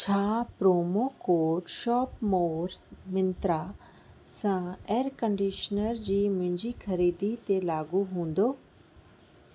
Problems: constant background noise